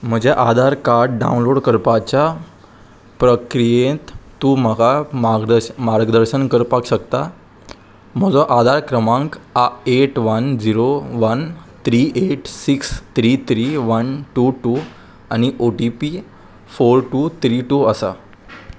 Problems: constant background noise